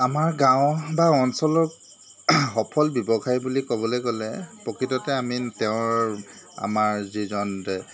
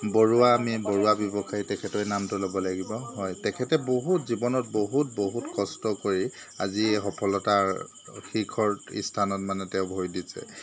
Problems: constant background noise